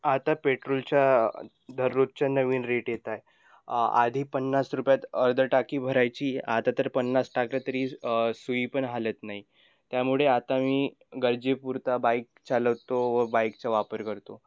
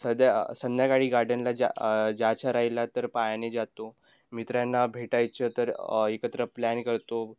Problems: none marked